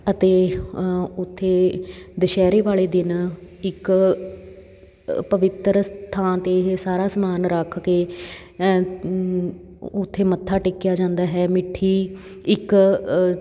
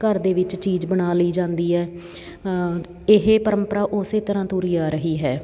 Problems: constant background noise